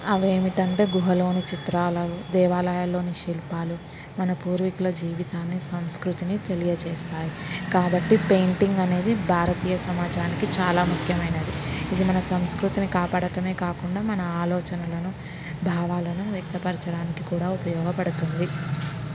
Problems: constant background noise